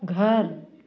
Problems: continuous background conversations